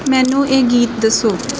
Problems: none marked